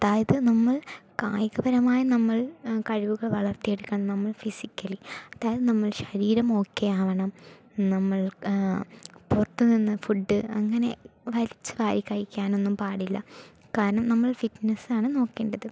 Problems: none marked